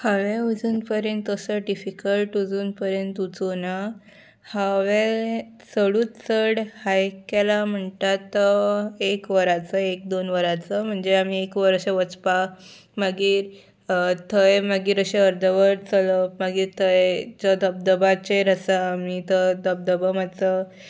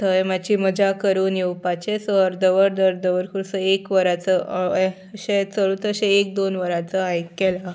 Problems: background sounds at intervals